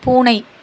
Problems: constant background noise